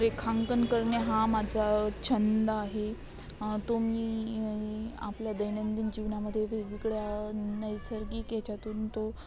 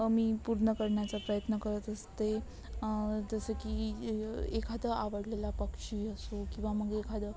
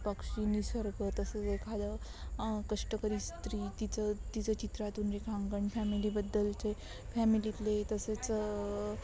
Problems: constant background noise, continuous background conversations